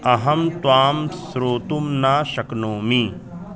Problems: constant background noise, background conversations at intervals